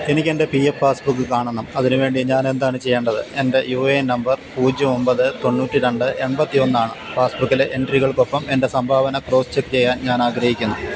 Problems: constant background noise